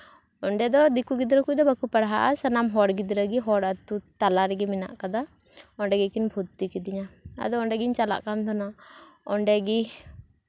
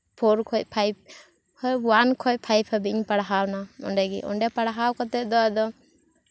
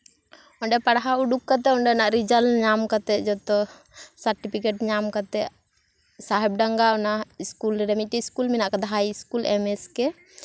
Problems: none marked